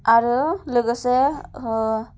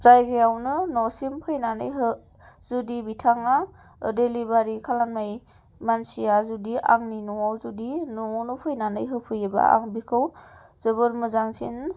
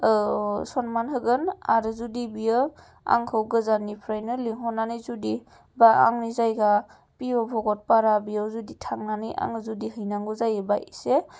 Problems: none marked